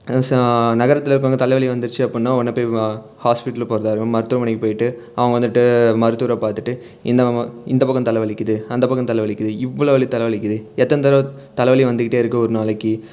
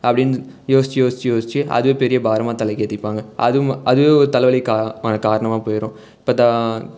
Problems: none marked